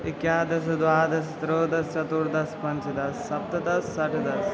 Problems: background sounds at intervals